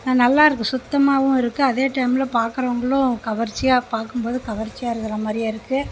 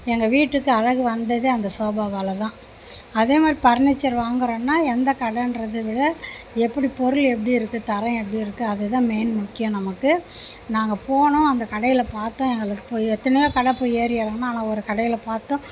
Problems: none marked